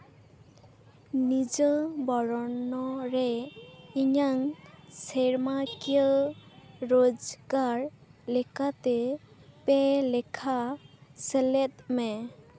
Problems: background sounds at intervals